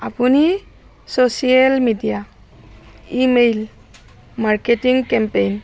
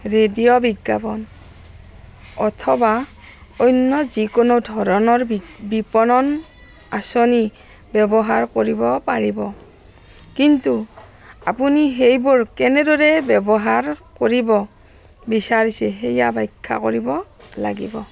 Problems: constant background noise